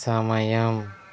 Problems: none marked